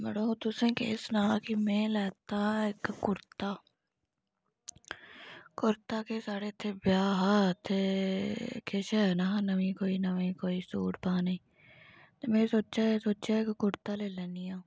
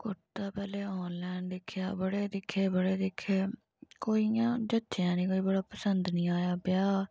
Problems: low volume